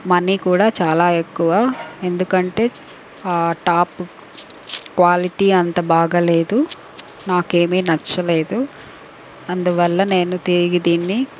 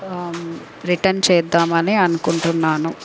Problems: background sounds at intervals